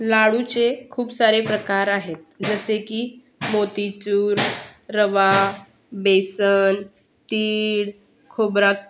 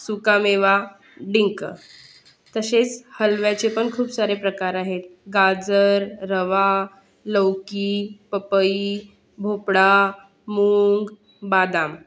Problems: constant background noise, continuous background conversations